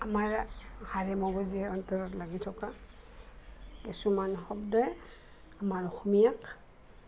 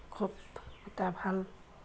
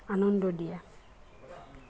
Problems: constant background noise, background conversations at intervals